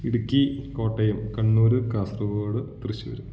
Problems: none marked